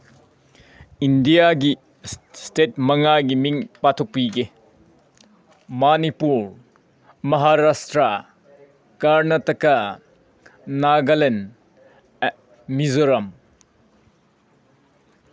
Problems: background sounds at intervals